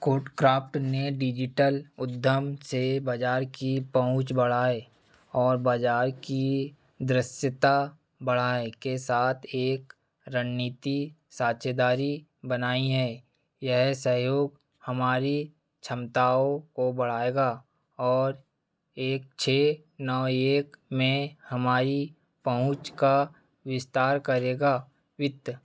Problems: none marked